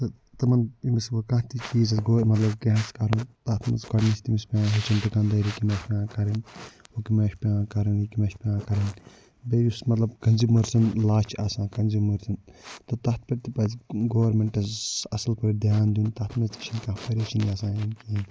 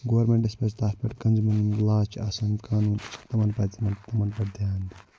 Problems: low volume